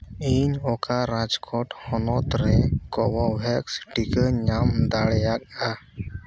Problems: background sounds at intervals